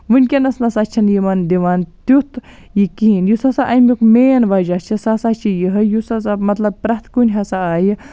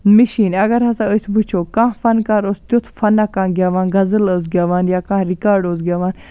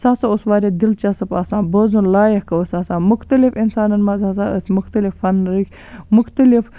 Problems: background sounds at intervals